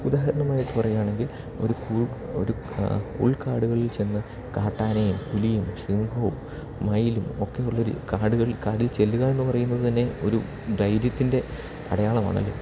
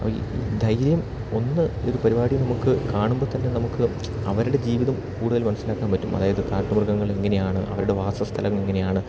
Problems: background sounds at intervals